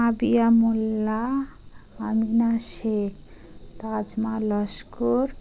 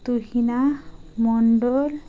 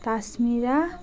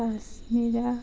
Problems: constant background noise, background conversations at intervals